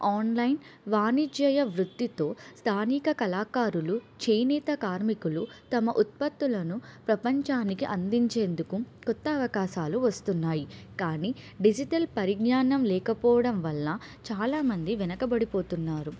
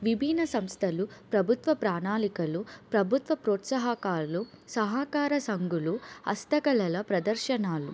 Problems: none marked